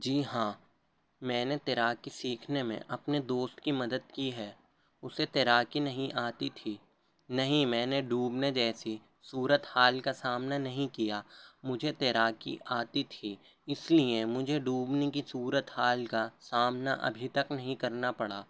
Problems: low volume